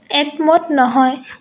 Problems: none marked